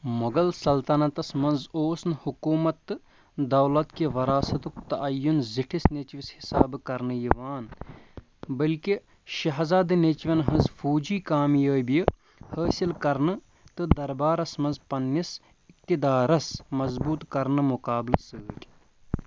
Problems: constant background noise